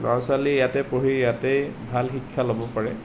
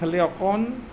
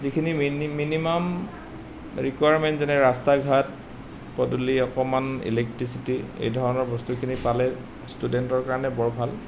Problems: none marked